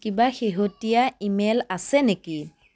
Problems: background sounds at intervals